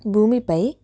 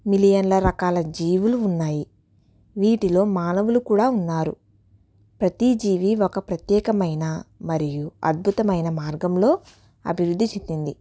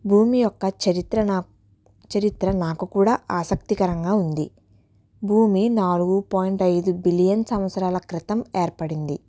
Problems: none marked